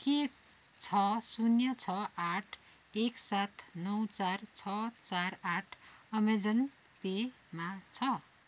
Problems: constant background noise